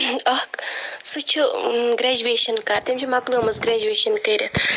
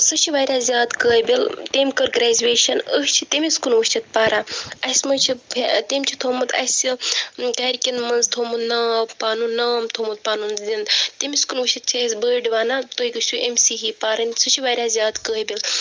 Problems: none marked